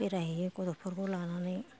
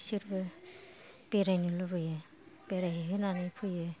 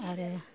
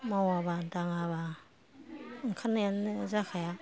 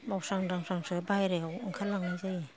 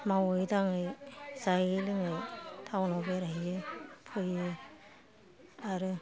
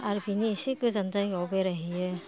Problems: low volume